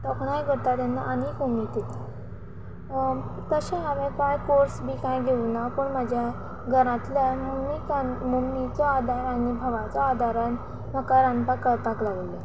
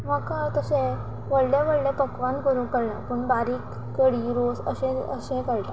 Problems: none marked